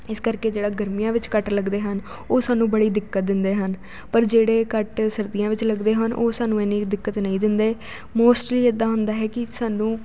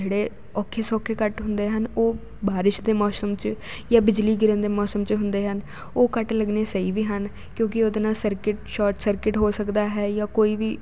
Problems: constant background noise